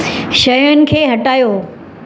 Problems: constant background noise, echo